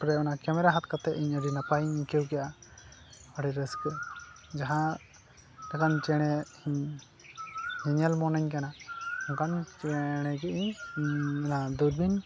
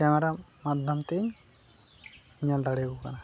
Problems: constant background noise